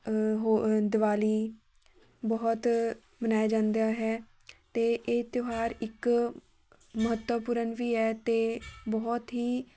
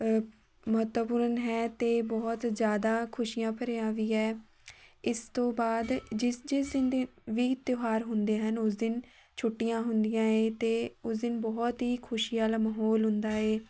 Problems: background sounds at intervals, background conversations at intervals